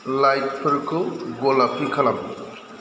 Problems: constant background noise